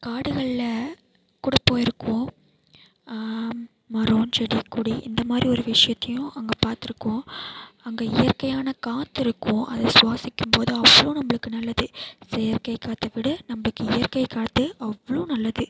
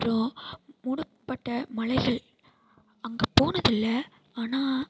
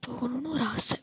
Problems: constant background noise